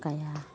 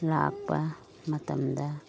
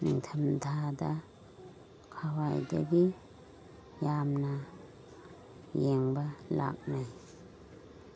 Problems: constant background noise